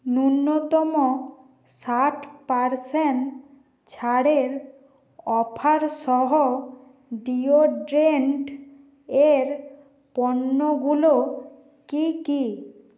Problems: constant background noise